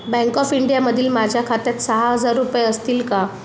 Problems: constant background noise